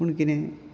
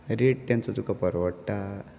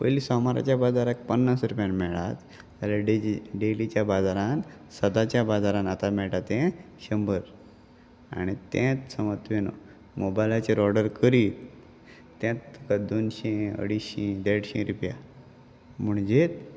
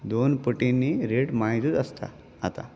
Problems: constant background noise